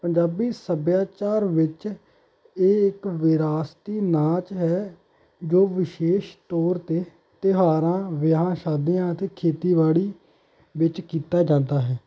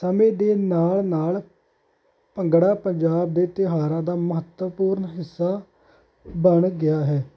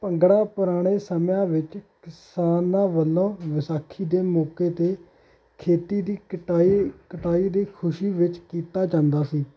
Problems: background sounds at intervals